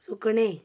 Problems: background sounds at intervals